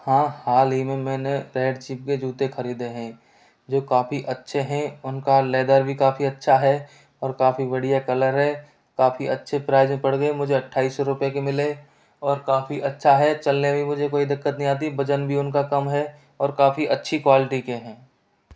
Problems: background sounds at intervals